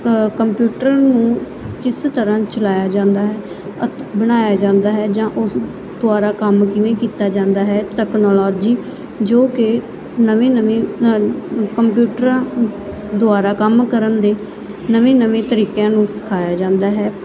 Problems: none marked